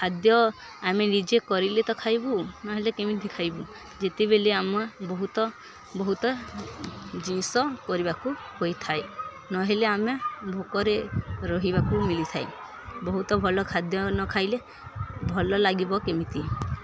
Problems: constant background noise, continuous background conversations